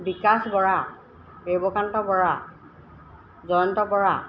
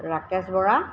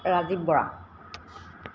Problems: constant background noise